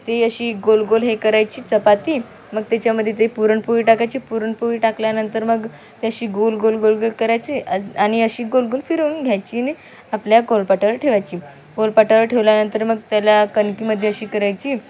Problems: background conversations at intervals